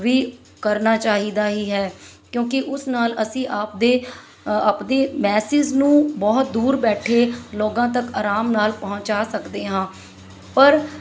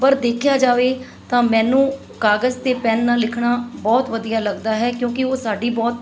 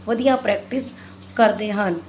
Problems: background sounds at intervals